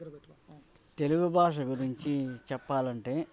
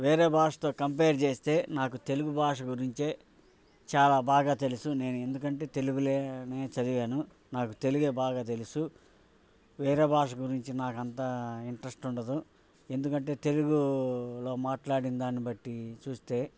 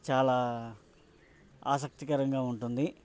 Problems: background sounds at intervals